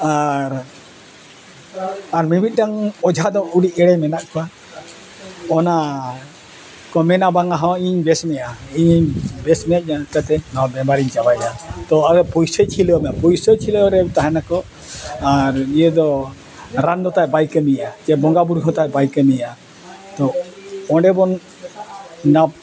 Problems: constant background noise